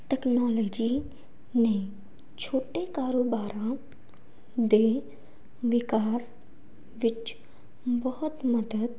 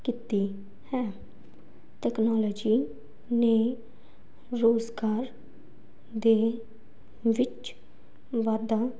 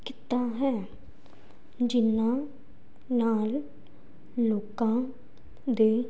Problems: background sounds at intervals